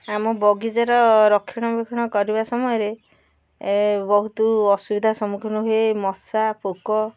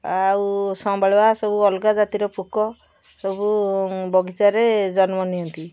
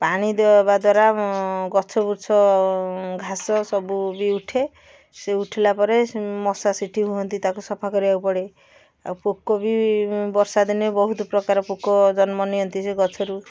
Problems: none marked